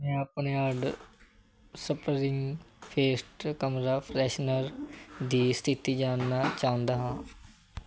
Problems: none marked